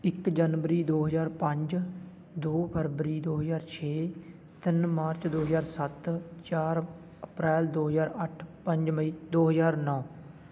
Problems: constant background noise